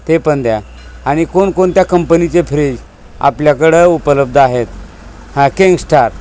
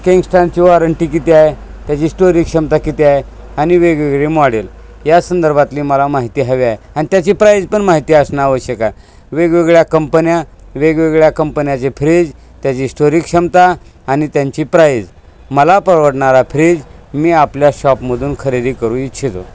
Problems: constant background noise, background conversations at intervals